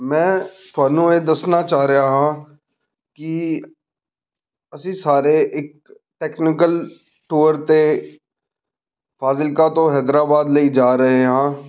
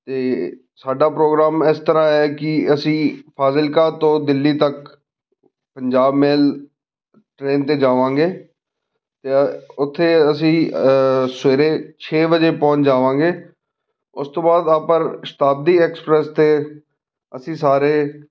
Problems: none marked